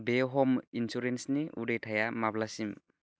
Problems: low volume